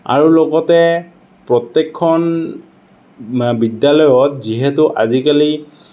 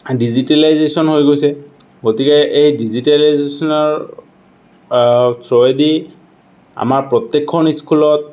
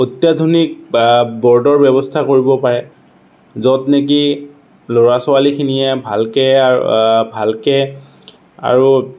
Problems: none marked